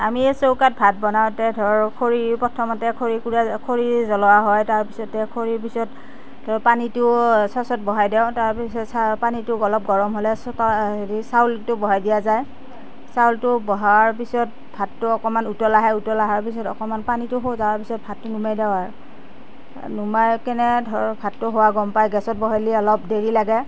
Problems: constant background noise